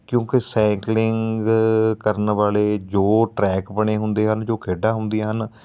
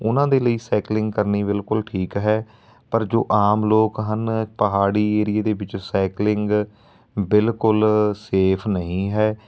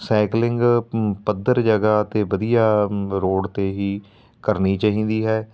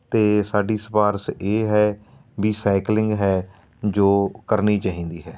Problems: none marked